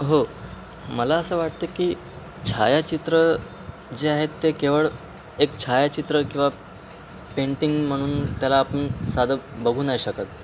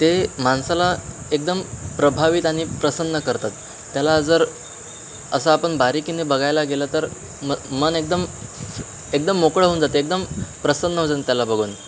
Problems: constant background noise